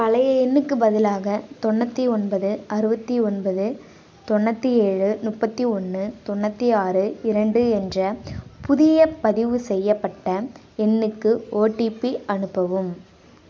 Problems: none marked